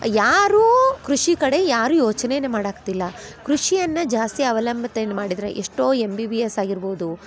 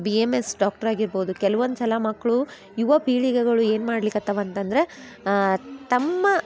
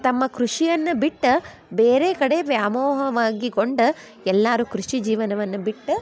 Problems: background sounds at intervals